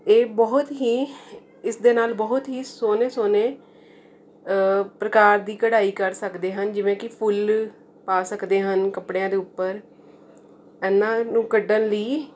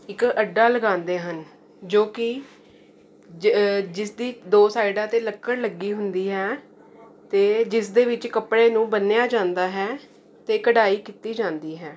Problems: none marked